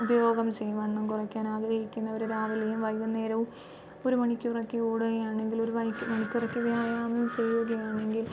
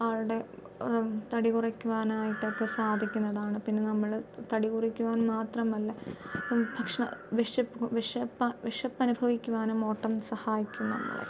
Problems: background sounds at intervals